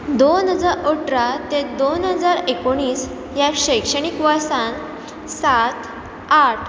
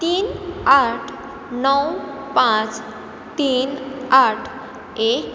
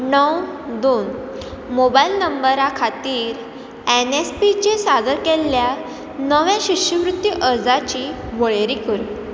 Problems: constant background noise